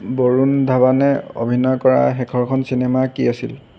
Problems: constant background noise